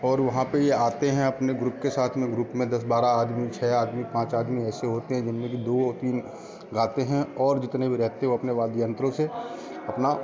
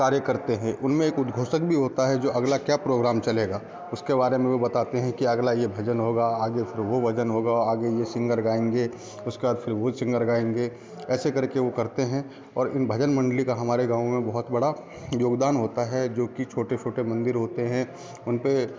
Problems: none marked